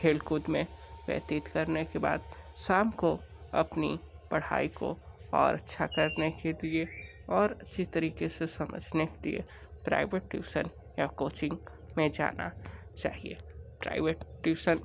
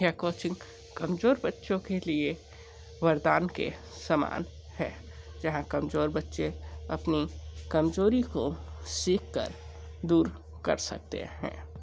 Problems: background sounds at intervals, low volume